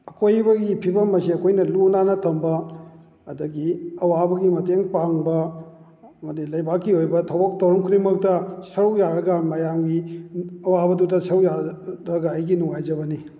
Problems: none marked